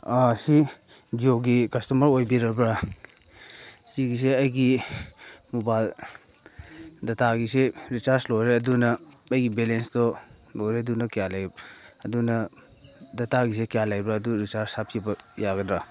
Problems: background sounds at intervals